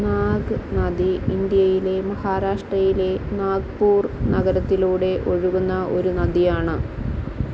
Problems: constant background noise, low volume